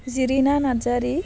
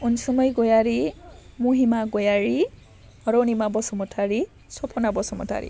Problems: none marked